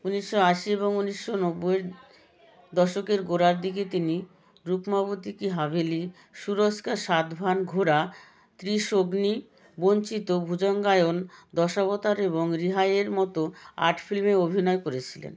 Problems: continuous background conversations